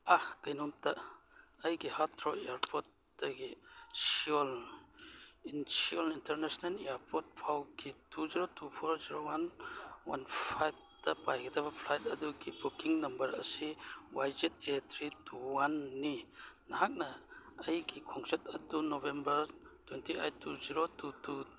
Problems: none marked